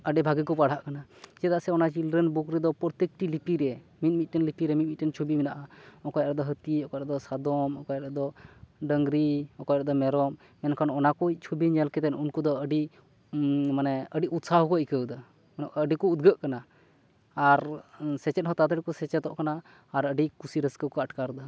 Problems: background sounds at intervals